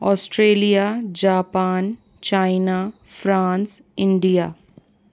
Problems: constant background noise